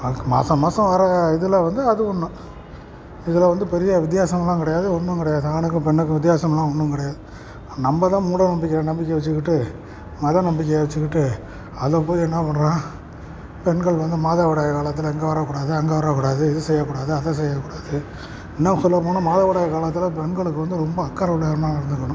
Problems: constant background noise